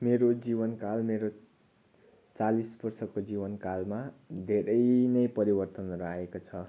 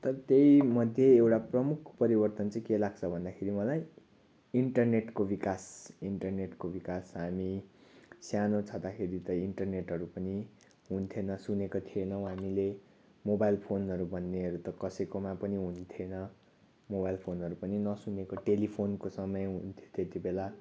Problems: constant background noise